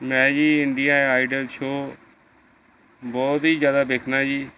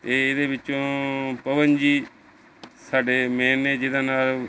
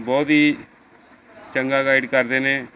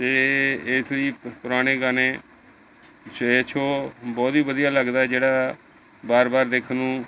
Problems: background conversations at intervals